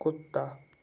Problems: constant background noise